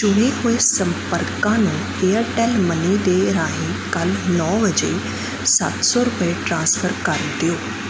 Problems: none marked